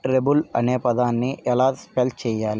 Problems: none marked